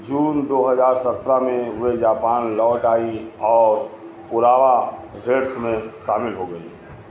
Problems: constant background noise, continuous background conversations